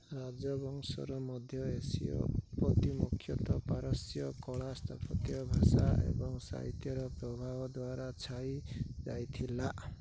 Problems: low volume